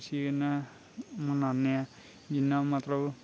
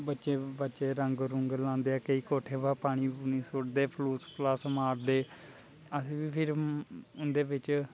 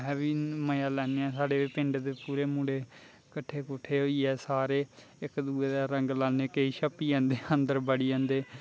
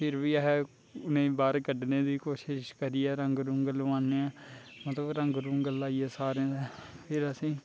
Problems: constant background noise, low volume